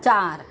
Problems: background sounds at intervals